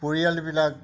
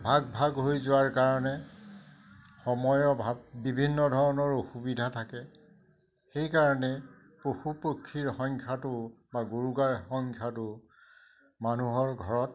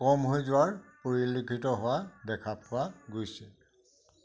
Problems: none marked